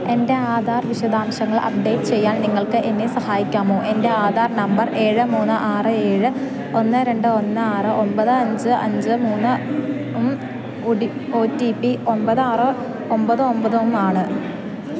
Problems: constant background noise